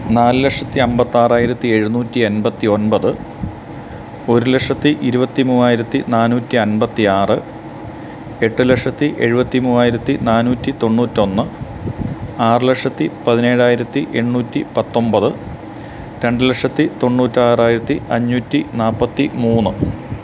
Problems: none marked